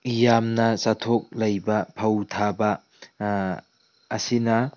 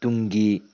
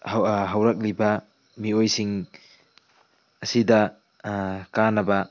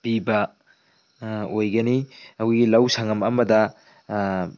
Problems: background sounds at intervals, low volume